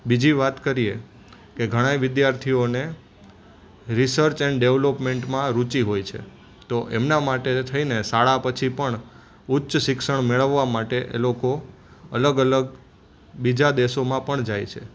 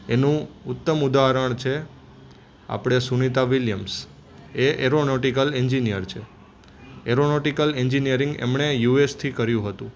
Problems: constant background noise